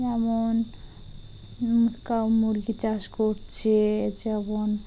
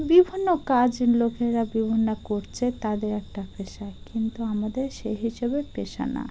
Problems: background sounds at intervals